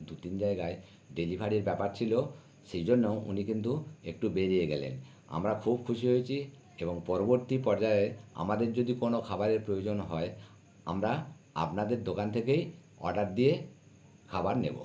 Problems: none marked